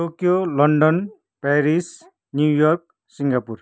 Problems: none marked